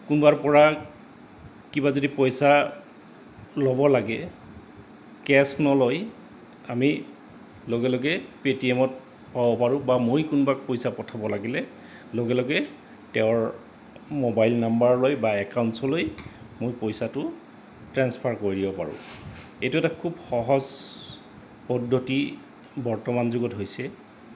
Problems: constant background noise